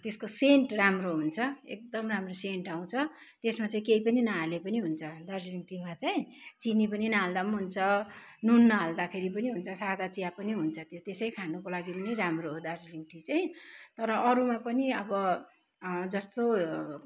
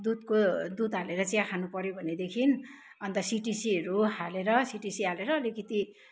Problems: none marked